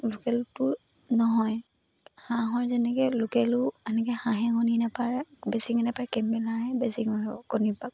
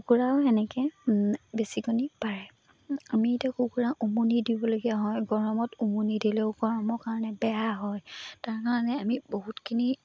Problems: none marked